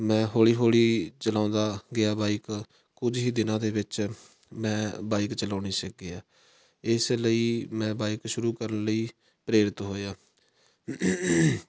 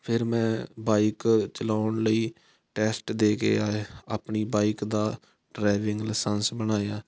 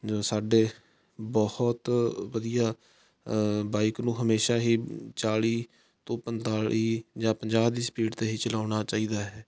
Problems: background sounds at intervals